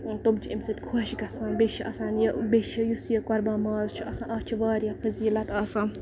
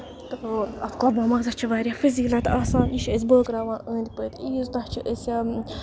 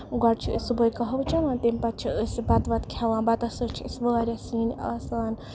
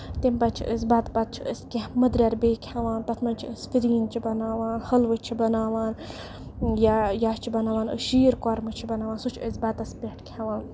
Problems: none marked